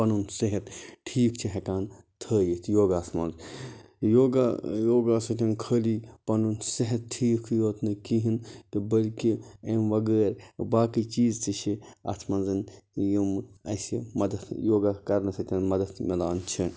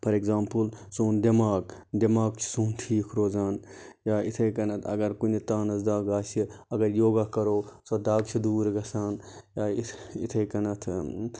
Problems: constant background noise